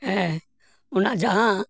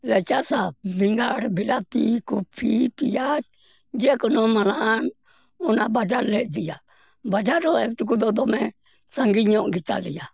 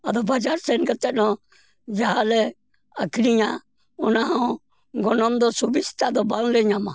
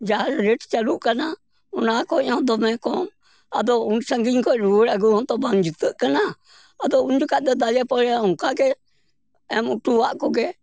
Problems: none marked